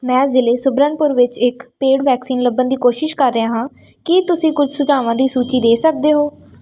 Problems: background sounds at intervals